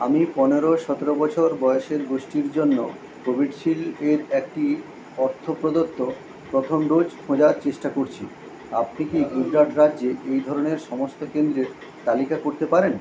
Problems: constant background noise